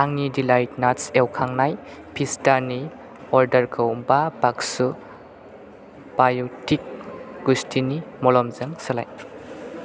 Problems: constant background noise